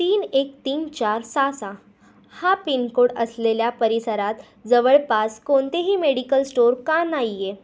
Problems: background sounds at intervals